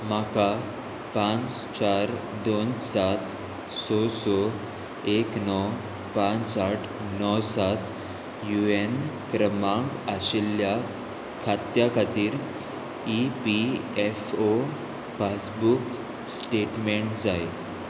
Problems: none marked